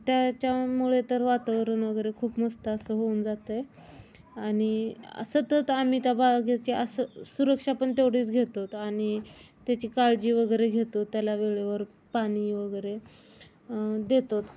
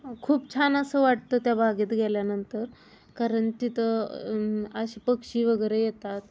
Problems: none marked